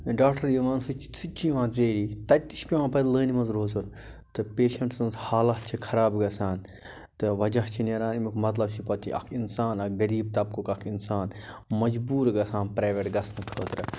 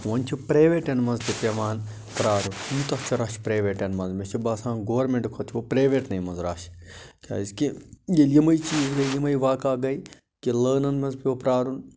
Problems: none marked